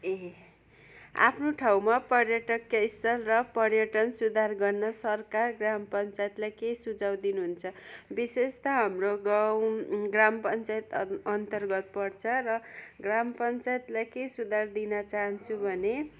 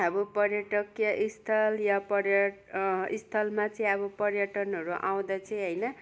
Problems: background sounds at intervals